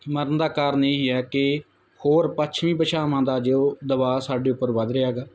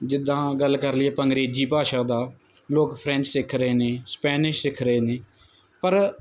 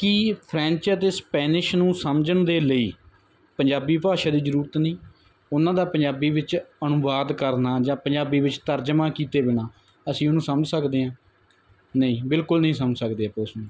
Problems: none marked